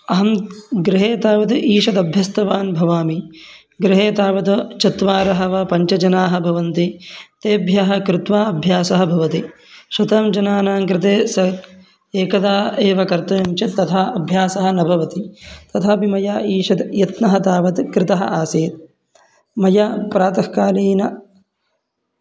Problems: constant background noise